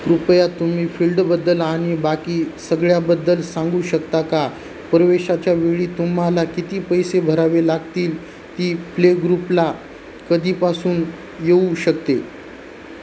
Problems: constant background noise